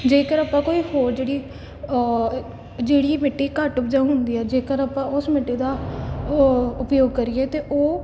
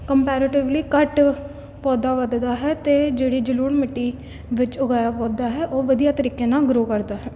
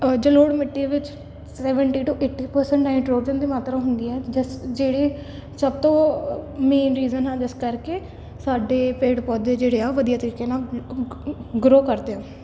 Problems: none marked